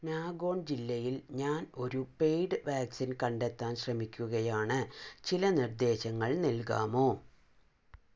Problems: low volume